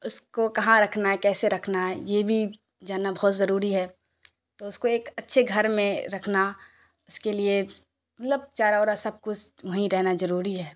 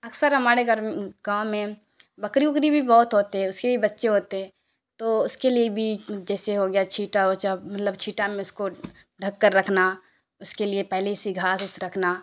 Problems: constant background noise